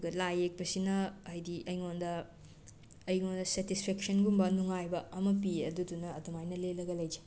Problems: background sounds at intervals